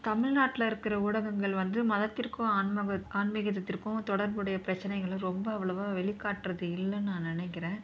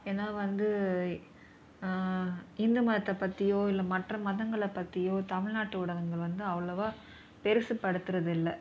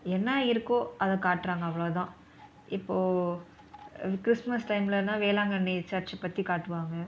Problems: background sounds at intervals